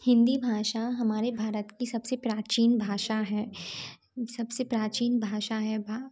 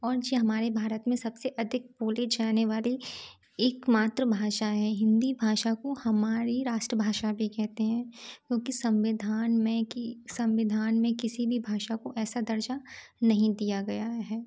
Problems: none marked